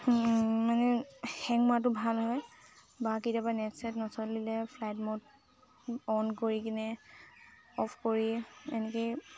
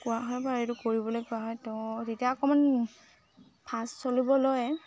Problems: constant background noise, background conversations at intervals